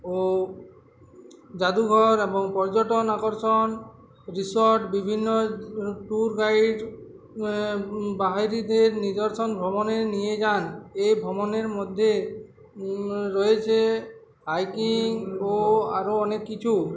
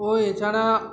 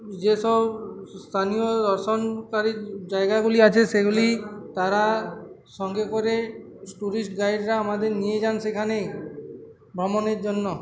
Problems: constant background noise, continuous background conversations